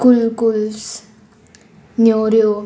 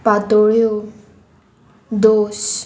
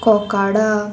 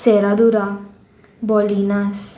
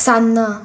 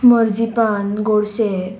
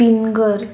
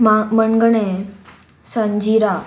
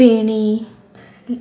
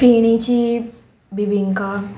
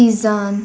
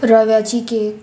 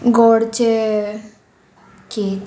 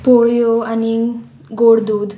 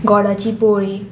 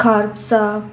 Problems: none marked